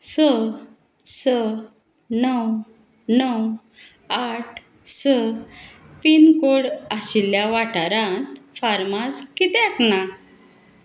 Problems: none marked